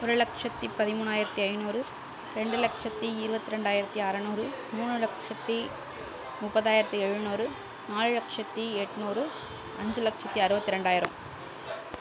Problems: constant background noise